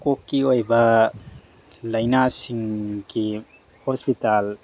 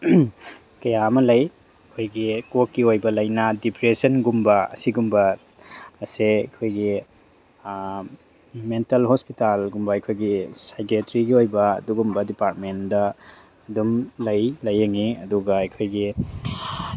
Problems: background sounds at intervals